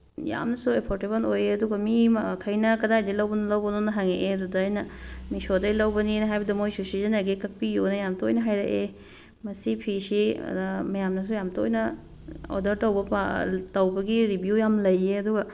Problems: background sounds at intervals